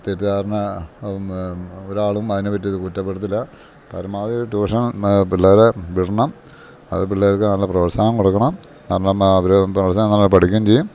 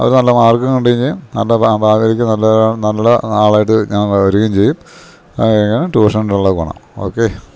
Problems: none marked